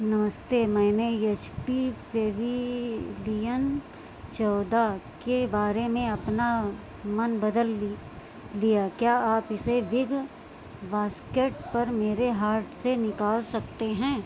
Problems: constant background noise